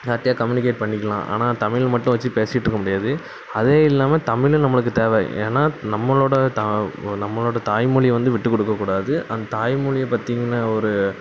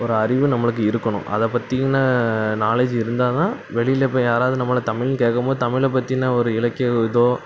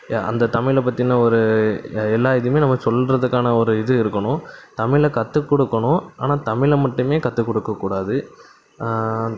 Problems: none marked